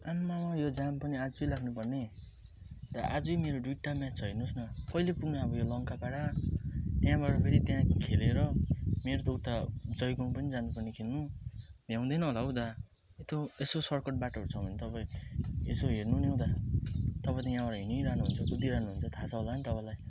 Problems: background sounds at intervals